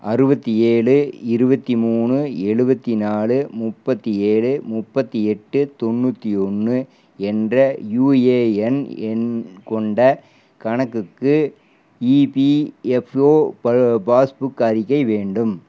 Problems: constant background noise